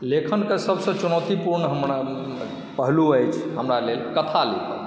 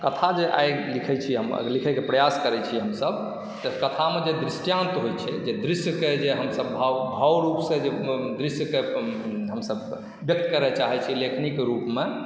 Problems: background sounds at intervals